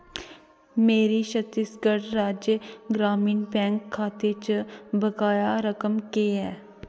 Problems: background sounds at intervals, echo